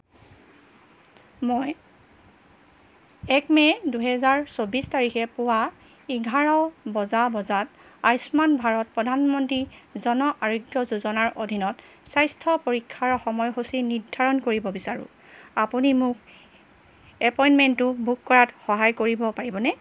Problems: background sounds at intervals